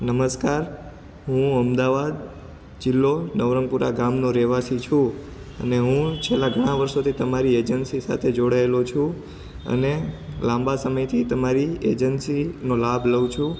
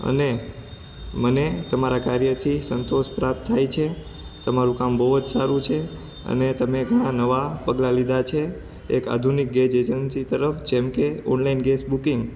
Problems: background sounds at intervals